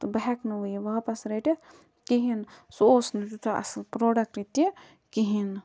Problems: background sounds at intervals